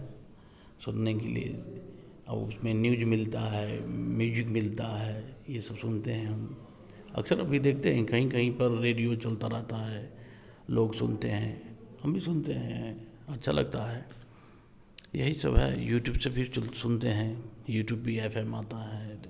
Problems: none marked